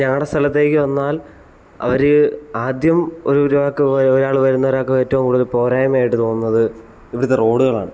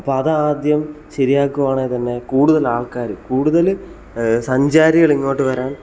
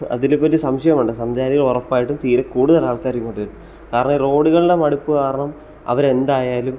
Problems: background sounds at intervals